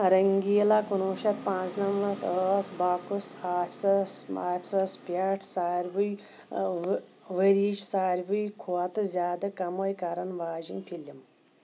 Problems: constant background noise